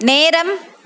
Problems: constant background noise